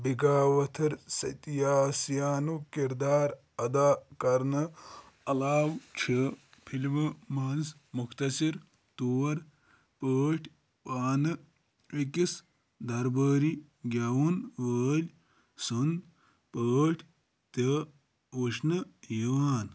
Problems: background sounds at intervals